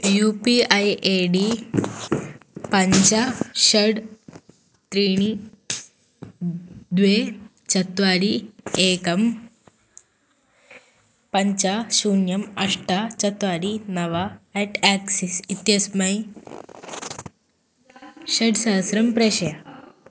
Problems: constant background noise, background conversations at intervals